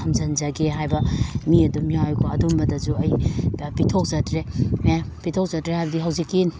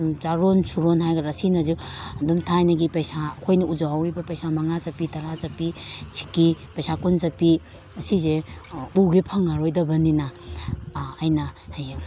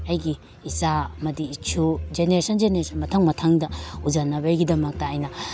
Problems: none marked